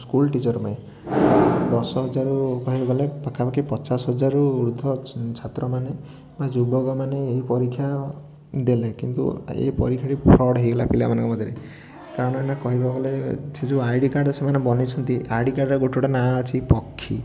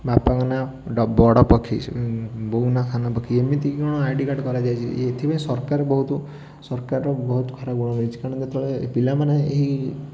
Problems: background sounds at intervals, continuous background conversations